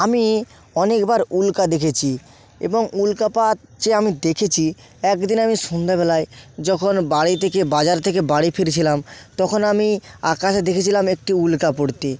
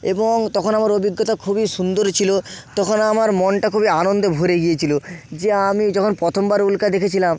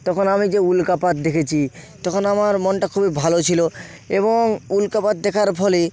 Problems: constant background noise